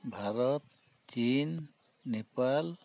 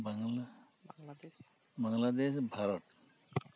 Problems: none marked